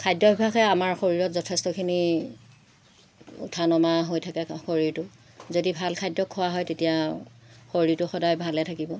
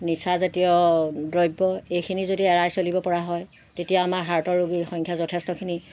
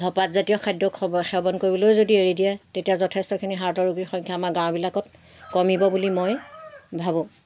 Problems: constant background noise